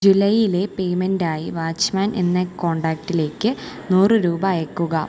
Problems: constant background noise, low volume